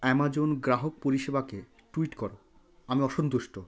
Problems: constant background noise